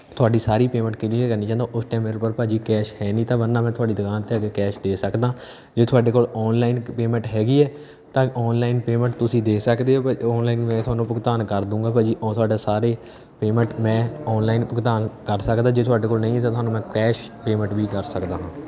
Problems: background sounds at intervals, background conversations at intervals